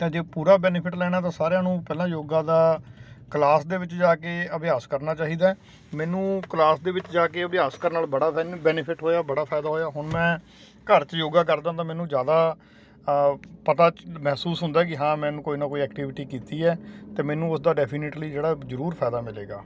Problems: constant background noise